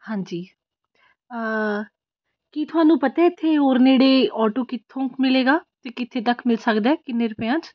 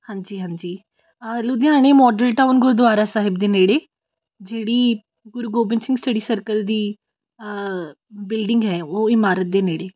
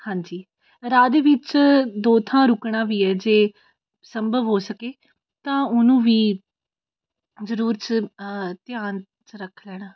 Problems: constant background noise